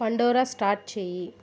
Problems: none marked